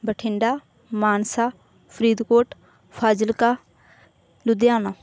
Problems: none marked